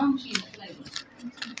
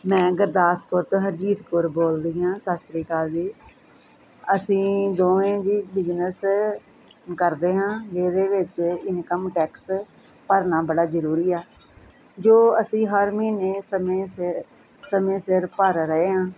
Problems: constant background noise